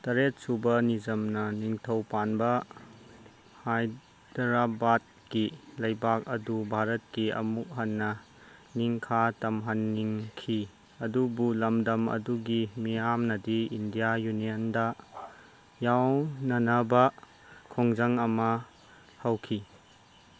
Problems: constant background noise